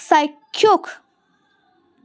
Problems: none marked